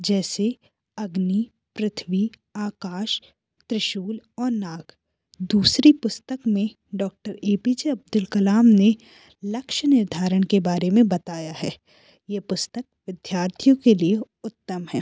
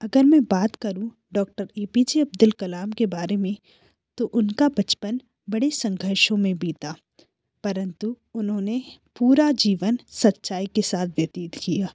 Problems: background sounds at intervals